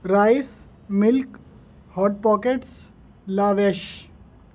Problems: none marked